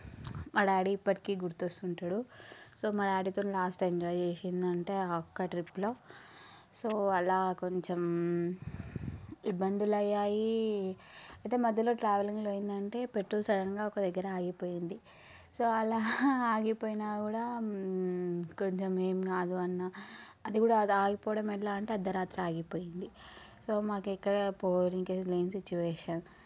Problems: background sounds at intervals